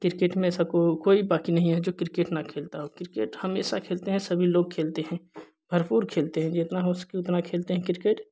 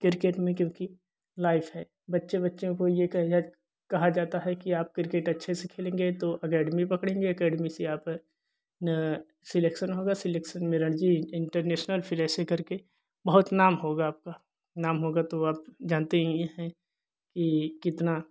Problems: none marked